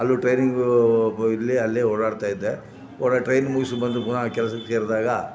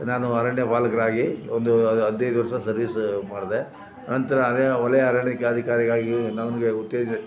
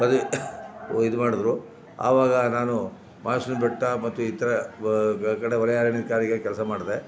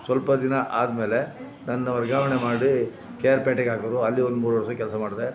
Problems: background sounds at intervals